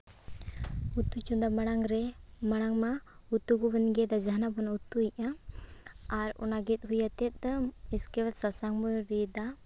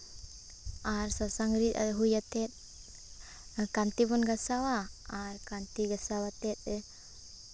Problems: constant background noise